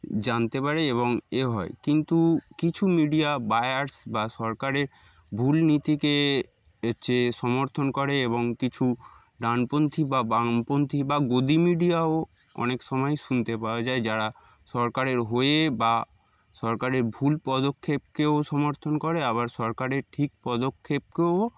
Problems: background sounds at intervals